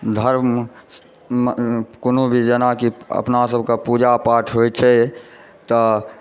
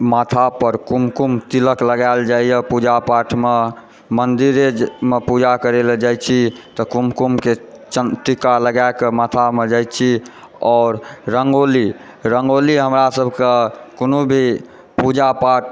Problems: background sounds at intervals, background conversations at intervals